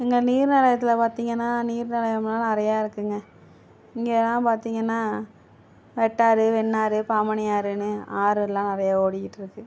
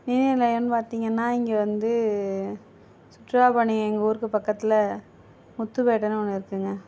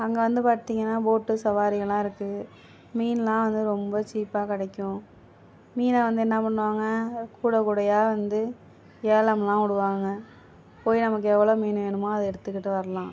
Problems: none marked